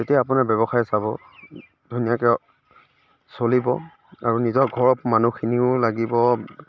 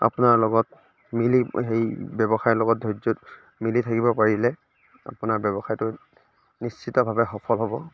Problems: none marked